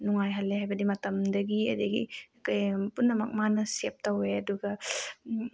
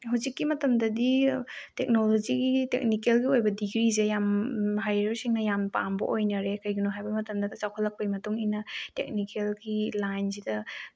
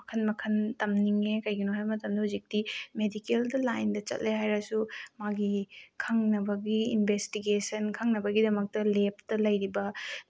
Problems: none marked